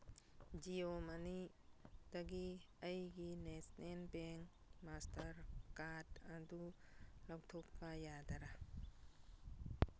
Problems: none marked